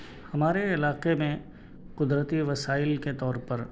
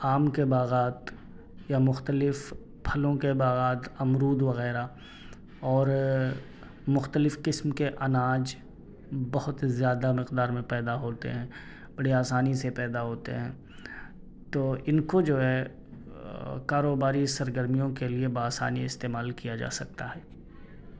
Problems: none marked